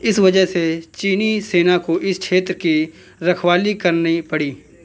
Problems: constant background noise, continuous background conversations